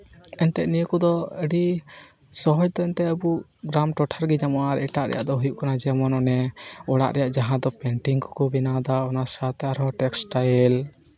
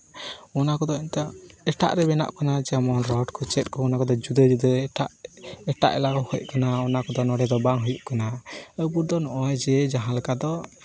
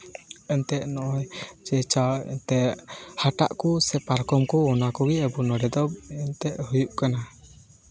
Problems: constant background noise, background conversations at intervals